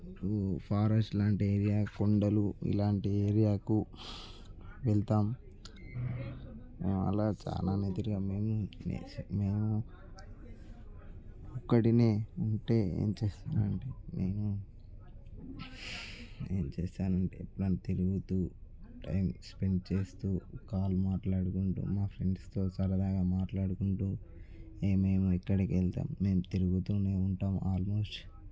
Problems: background conversations at intervals